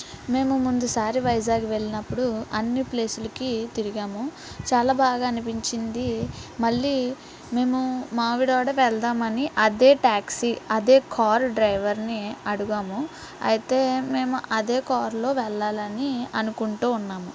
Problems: constant background noise, background conversations at intervals